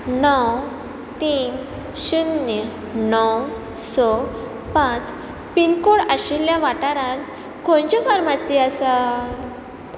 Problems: constant background noise